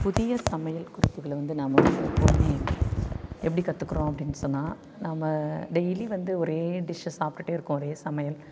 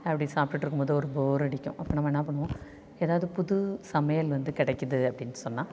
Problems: none marked